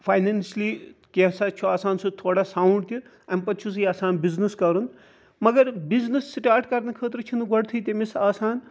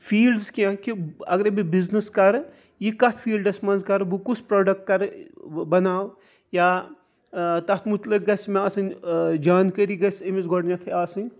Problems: constant background noise